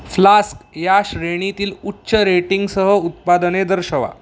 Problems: none marked